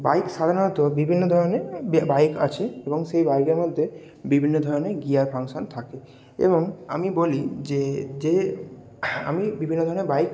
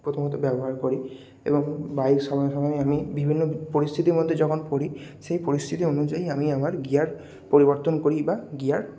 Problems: none marked